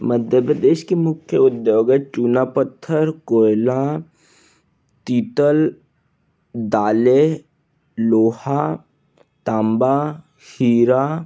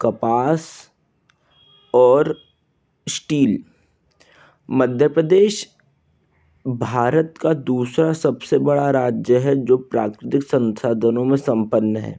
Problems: background sounds at intervals, background conversations at intervals